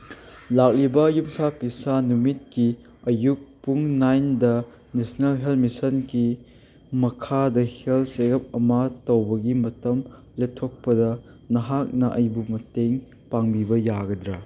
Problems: none marked